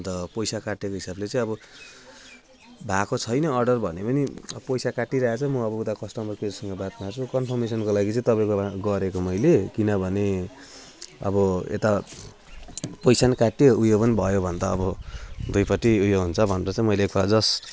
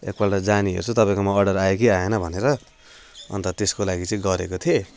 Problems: constant background noise